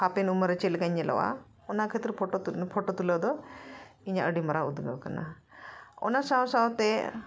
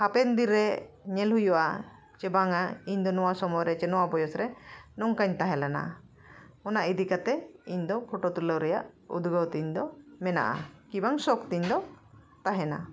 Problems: none marked